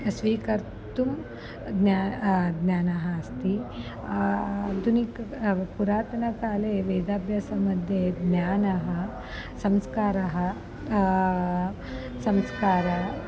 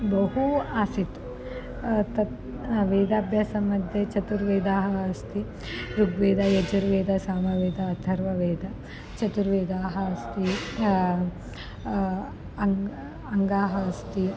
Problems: constant background noise